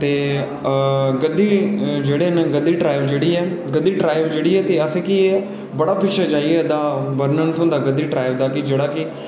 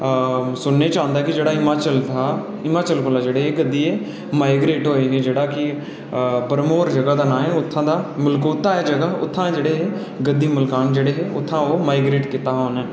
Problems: none marked